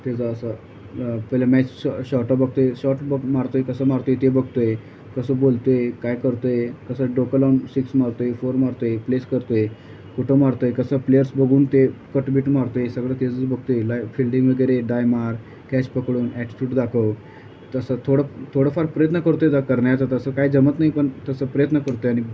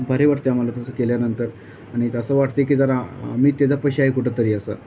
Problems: constant background noise